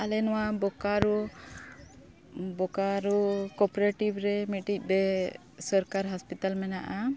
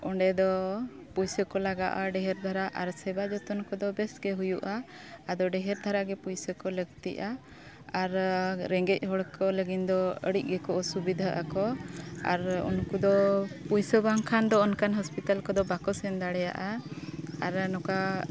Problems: background sounds at intervals, continuous background conversations